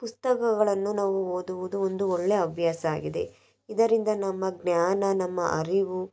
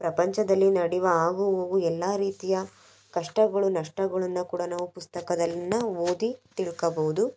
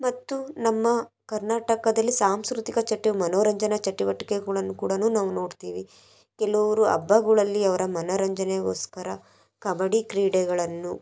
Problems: background sounds at intervals